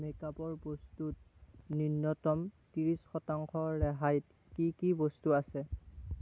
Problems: none marked